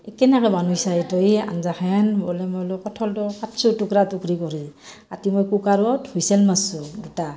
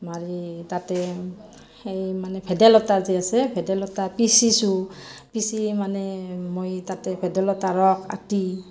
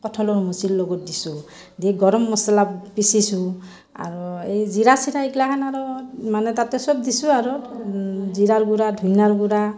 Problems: background sounds at intervals, background conversations at intervals